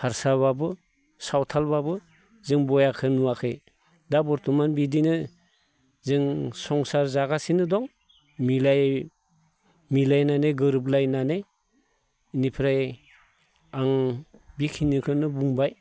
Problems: none marked